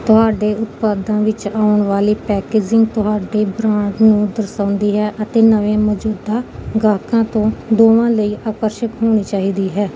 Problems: none marked